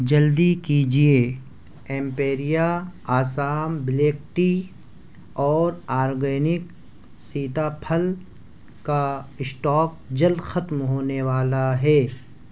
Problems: none marked